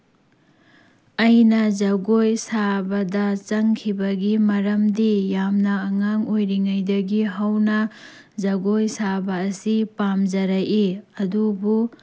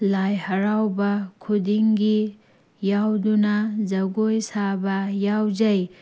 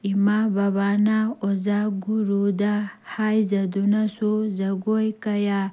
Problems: none marked